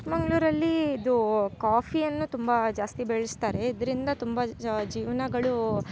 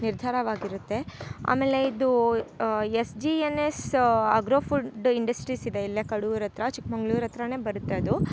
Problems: none marked